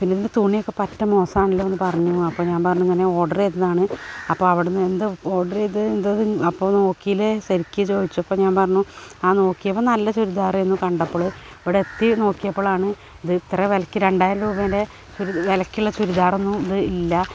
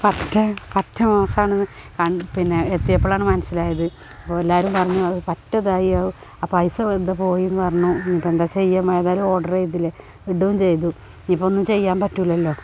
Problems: constant background noise